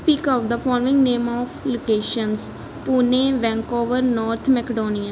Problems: none marked